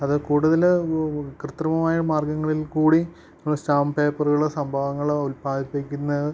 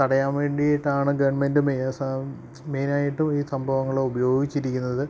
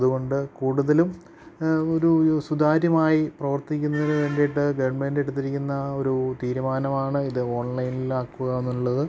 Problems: none marked